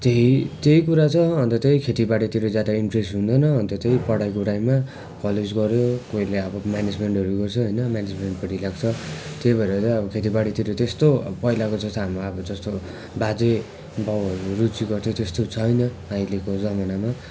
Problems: continuous background conversations